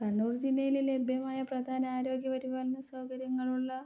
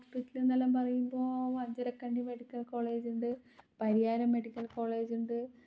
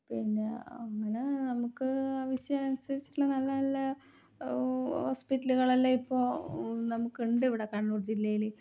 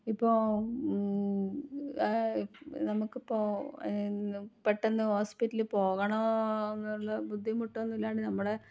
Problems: low volume